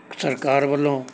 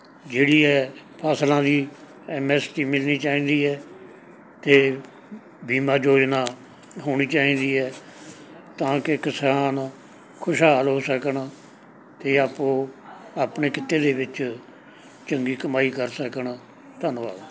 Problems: background sounds at intervals, background conversations at intervals